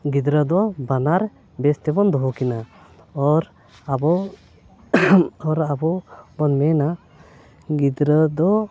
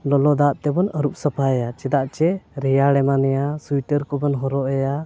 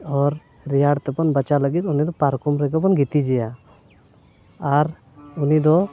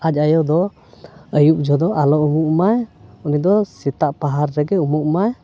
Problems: none marked